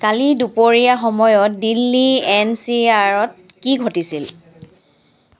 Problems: background sounds at intervals